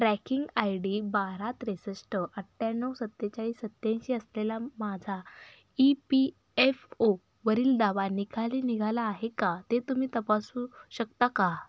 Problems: background sounds at intervals, echo